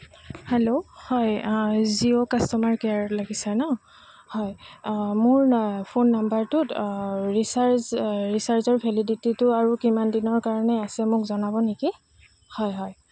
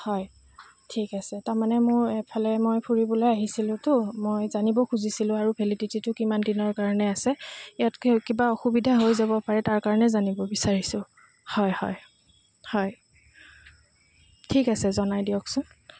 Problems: constant background noise